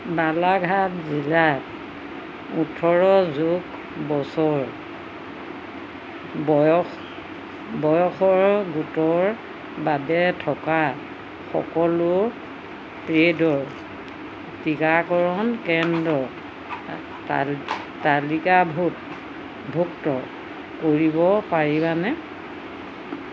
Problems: constant background noise